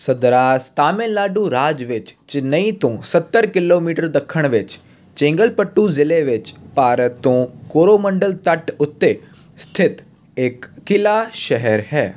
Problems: constant background noise